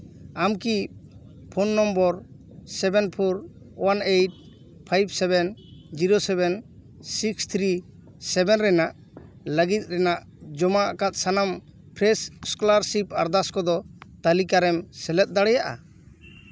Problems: none marked